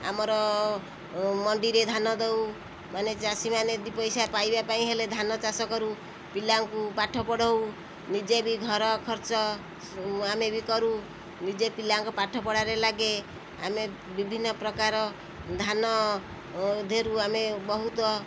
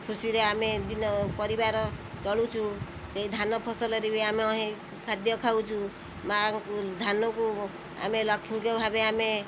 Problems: constant background noise